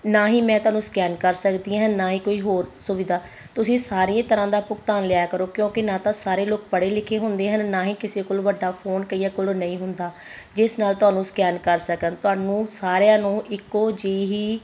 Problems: constant background noise